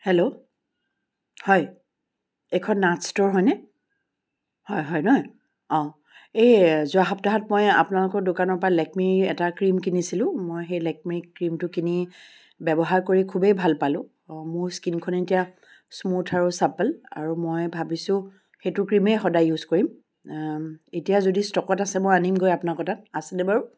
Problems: none marked